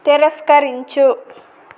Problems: constant background noise